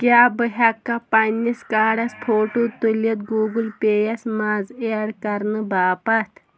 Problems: constant background noise